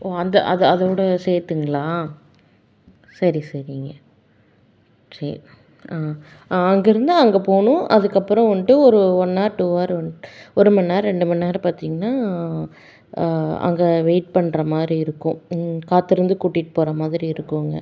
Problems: none marked